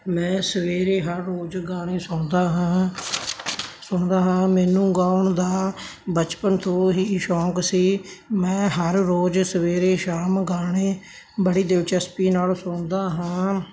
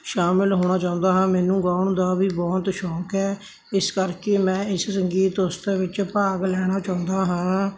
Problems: none marked